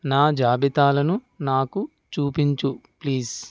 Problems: none marked